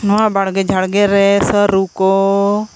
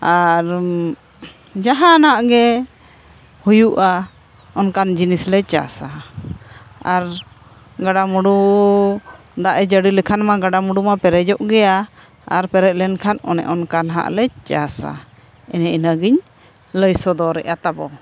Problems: constant background noise